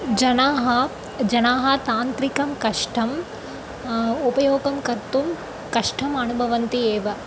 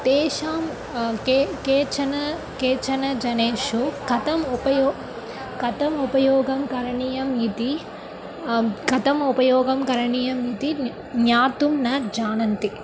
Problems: none marked